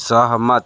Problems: constant background noise